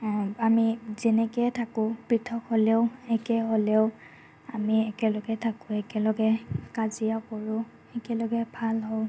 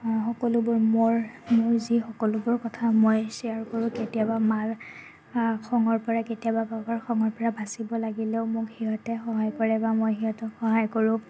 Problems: none marked